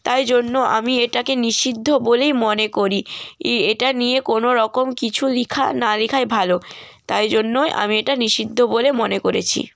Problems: none marked